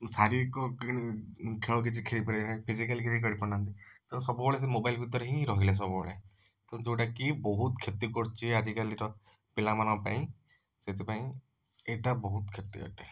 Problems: background sounds at intervals